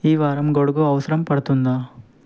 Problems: none marked